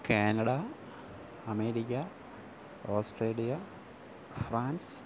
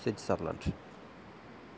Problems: low volume